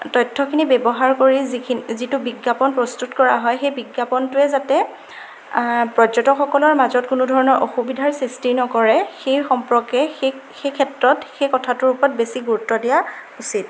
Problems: constant background noise